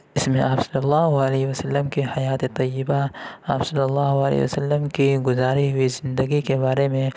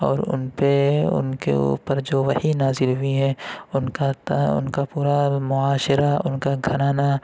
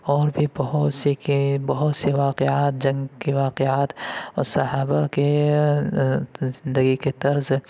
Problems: constant background noise